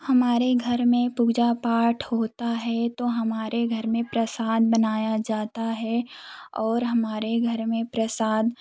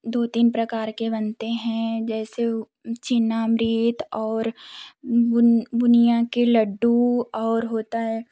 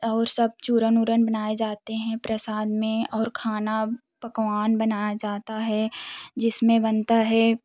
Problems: background sounds at intervals, background conversations at intervals